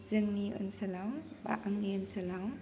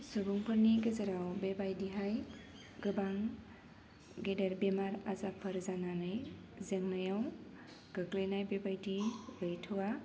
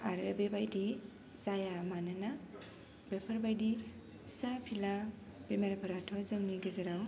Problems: low volume